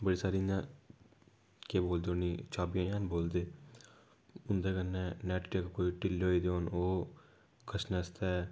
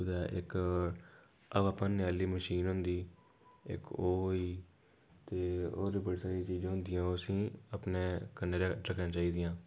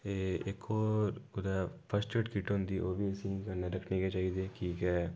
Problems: none marked